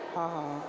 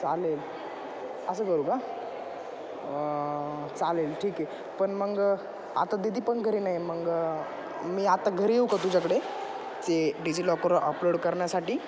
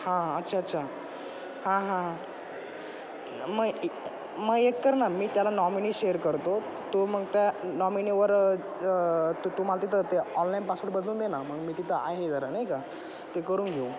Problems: constant background noise, background conversations at intervals, echo